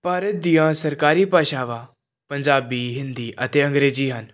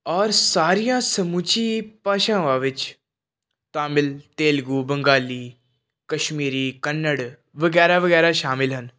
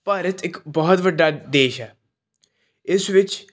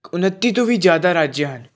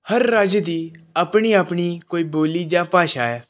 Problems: none marked